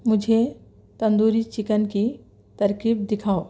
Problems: background sounds at intervals